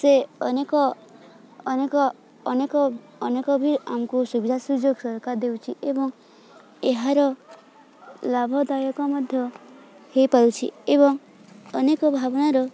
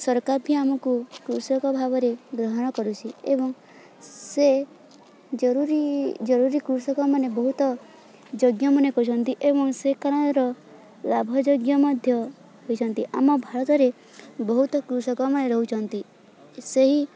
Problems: constant background noise, continuous background conversations